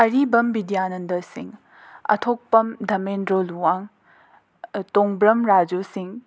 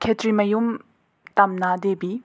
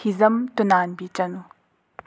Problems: none marked